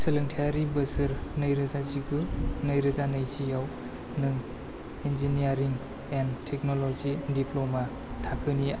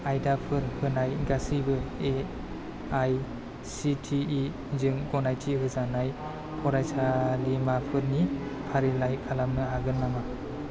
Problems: constant background noise